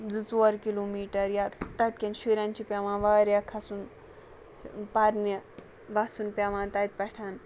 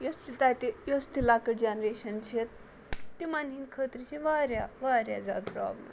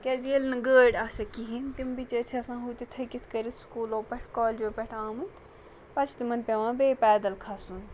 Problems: background sounds at intervals